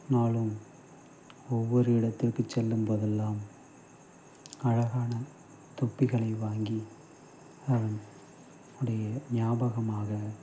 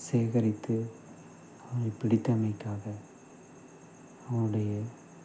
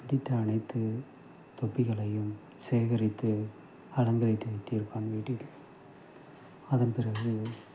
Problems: constant background noise, low volume